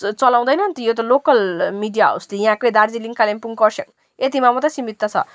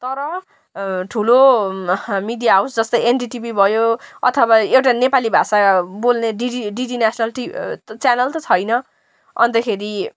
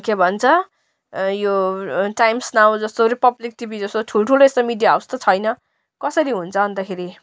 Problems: background sounds at intervals